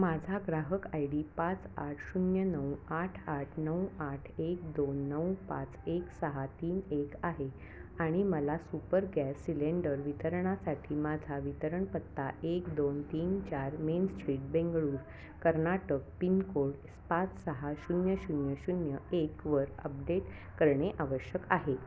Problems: constant background noise, background conversations at intervals